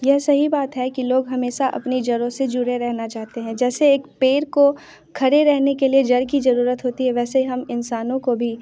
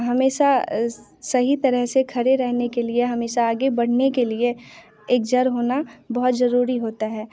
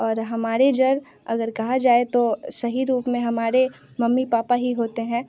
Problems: constant background noise